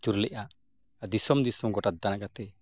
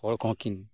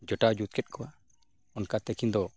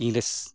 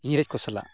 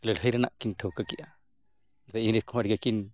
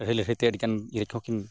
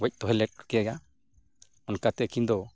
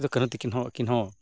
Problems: none marked